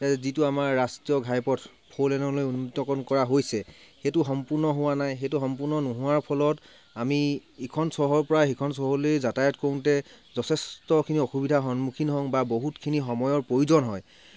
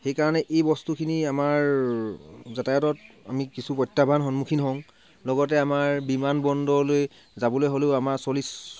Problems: constant background noise